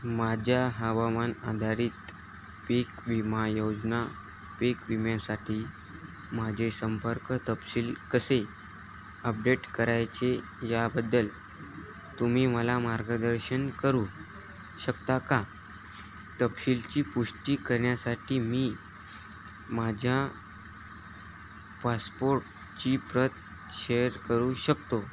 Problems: none marked